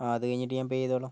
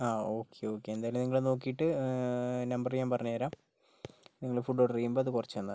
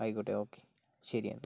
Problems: none marked